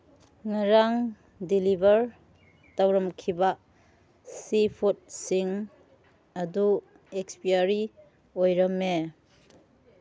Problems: background conversations at intervals